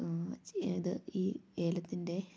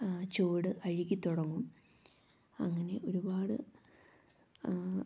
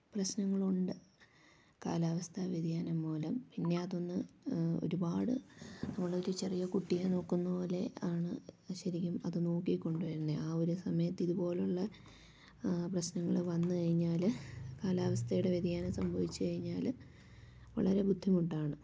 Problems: low volume